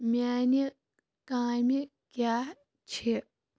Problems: none marked